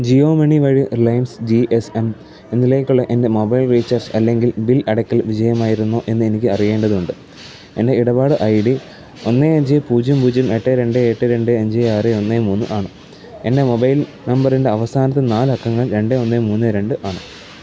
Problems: constant background noise, low volume